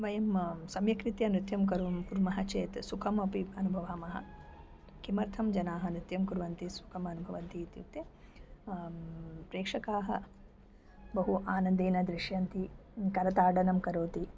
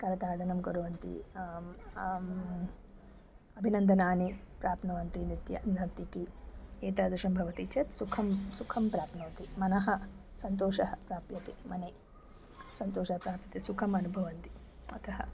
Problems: background sounds at intervals